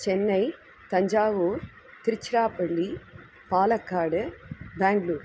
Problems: constant background noise